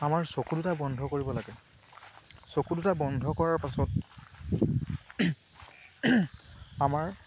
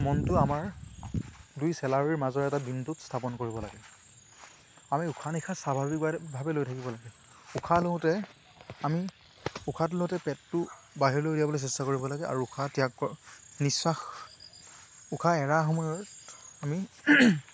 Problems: constant background noise